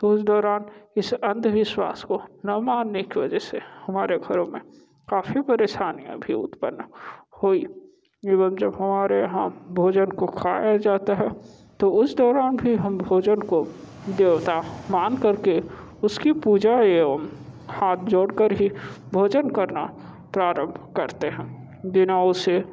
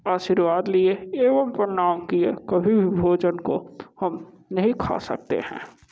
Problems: background sounds at intervals